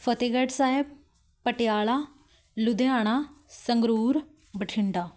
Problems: none marked